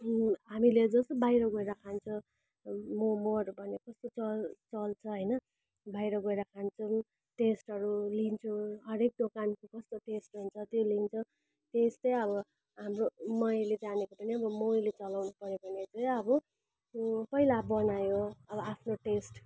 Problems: constant background noise